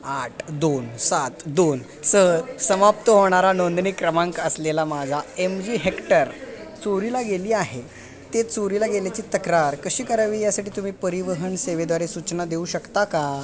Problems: none marked